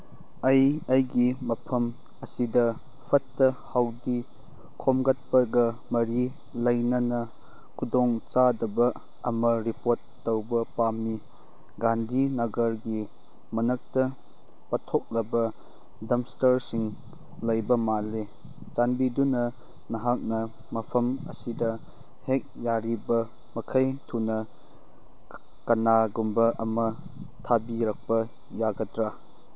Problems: background sounds at intervals